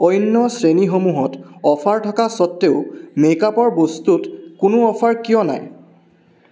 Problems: none marked